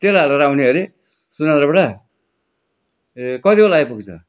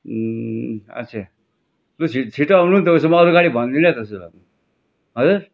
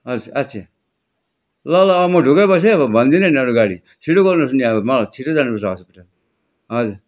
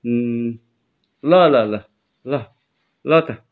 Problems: background sounds at intervals